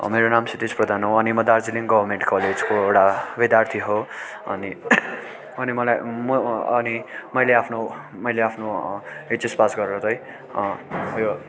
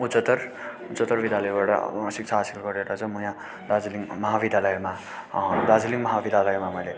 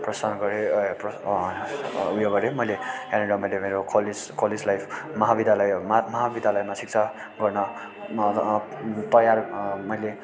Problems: none marked